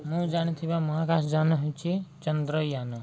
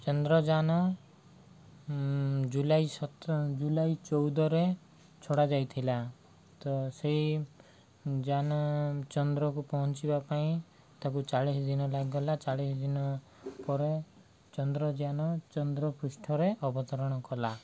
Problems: low volume